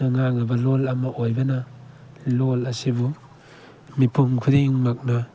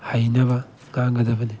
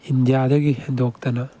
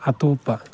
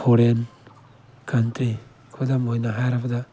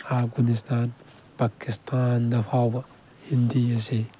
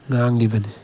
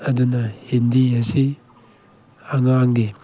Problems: background sounds at intervals